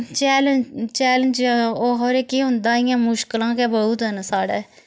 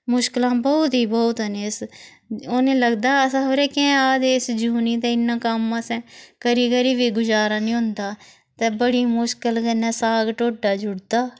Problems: constant background noise